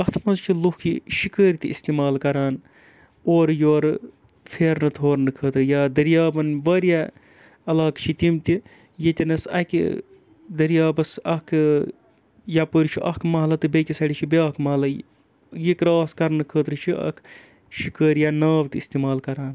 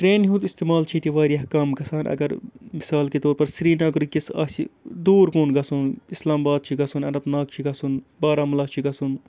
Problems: background sounds at intervals